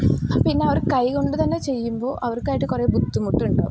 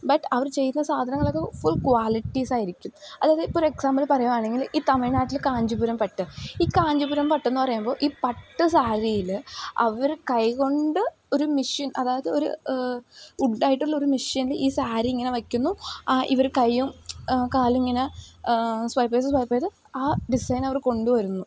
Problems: background sounds at intervals